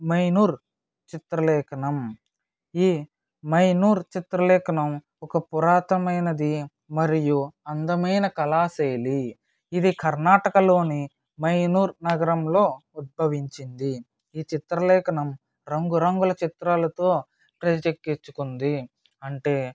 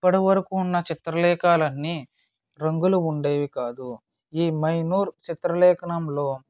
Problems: none marked